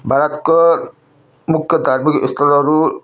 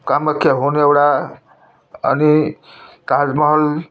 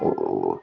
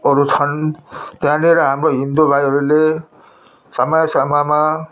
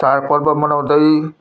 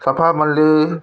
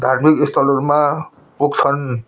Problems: none marked